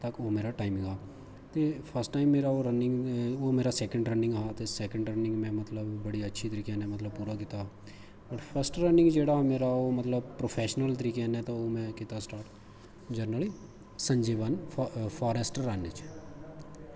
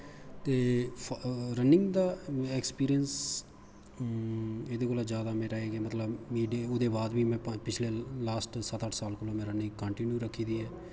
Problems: constant background noise